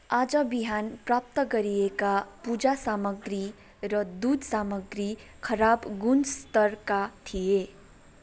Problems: none marked